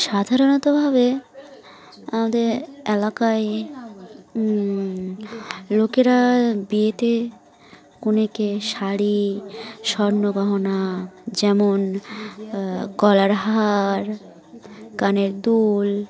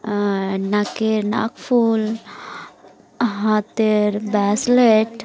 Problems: constant background noise, continuous background conversations